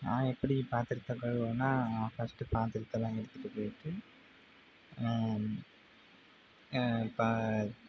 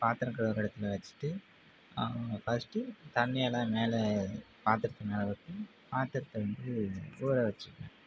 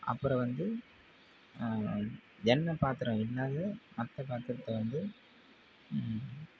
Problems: constant background noise